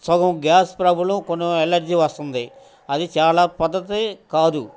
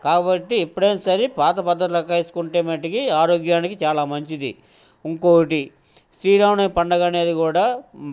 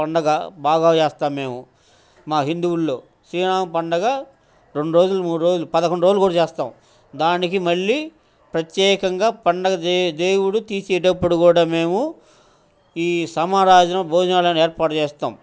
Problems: constant background noise, background conversations at intervals